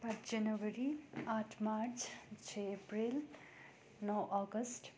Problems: background sounds at intervals